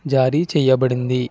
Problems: none marked